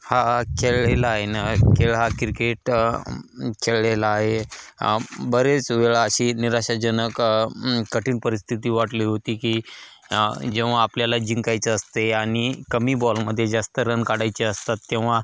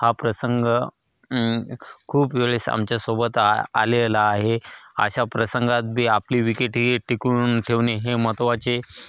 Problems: constant background noise, echo